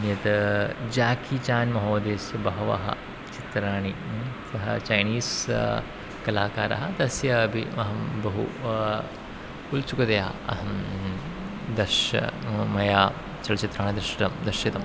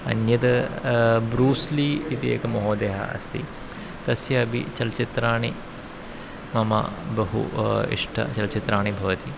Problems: constant background noise